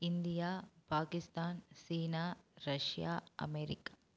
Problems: none marked